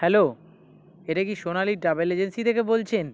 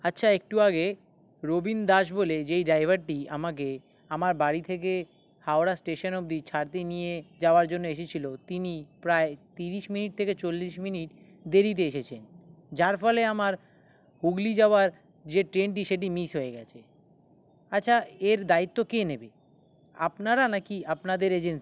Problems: background sounds at intervals